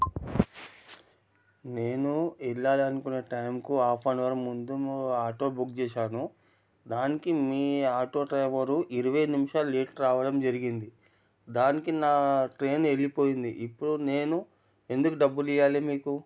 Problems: none marked